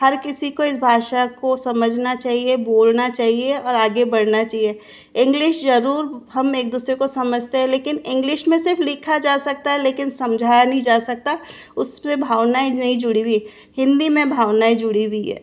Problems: background sounds at intervals